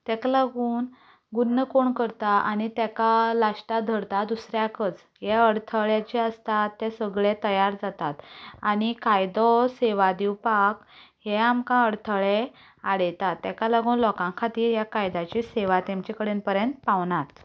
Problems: background sounds at intervals, continuous background conversations